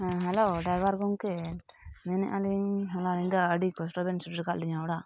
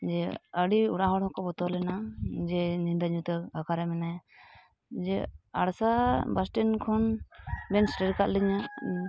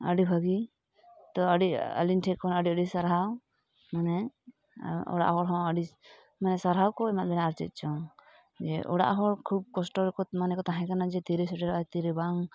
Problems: constant background noise